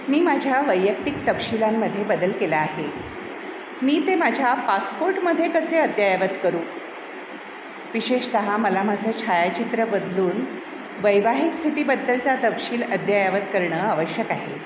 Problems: constant background noise, echo